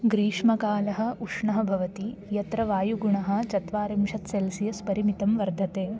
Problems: constant background noise